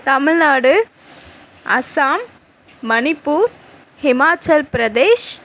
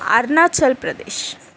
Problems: none marked